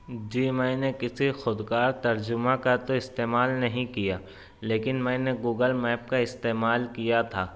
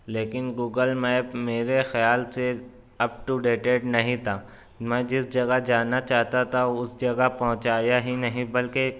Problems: none marked